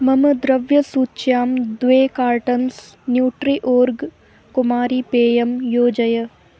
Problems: none marked